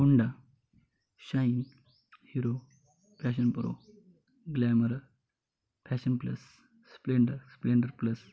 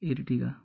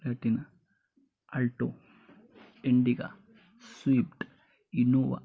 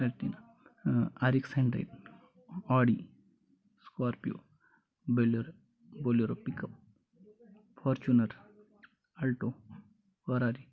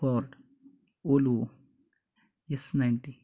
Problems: constant background noise